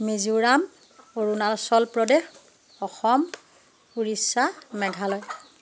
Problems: background sounds at intervals